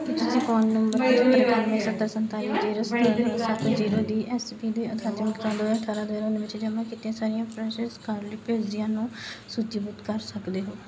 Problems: background sounds at intervals